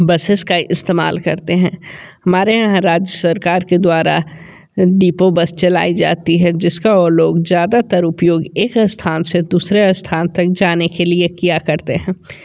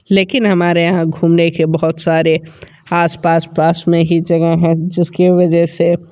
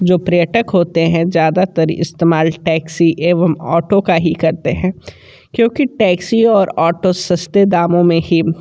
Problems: continuous background conversations